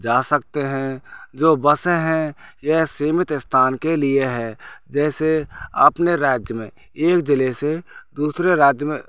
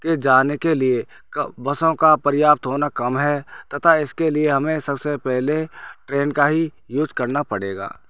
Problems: none marked